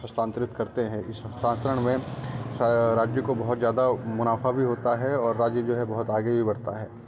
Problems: none marked